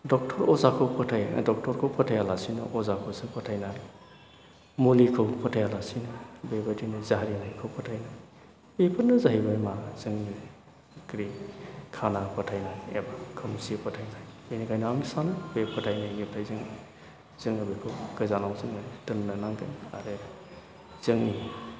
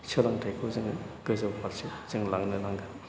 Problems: constant background noise